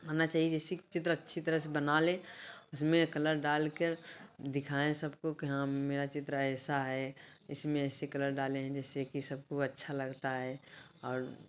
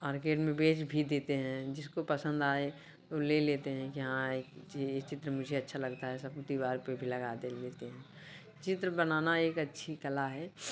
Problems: background sounds at intervals